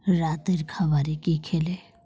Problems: none marked